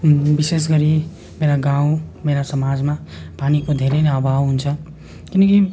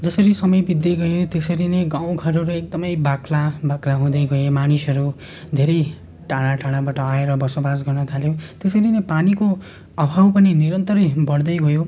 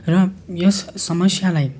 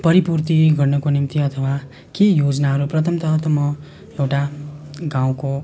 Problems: continuous background conversations